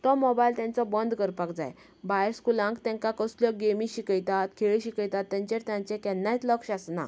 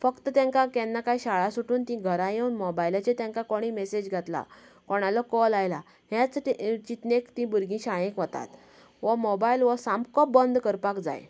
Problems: none marked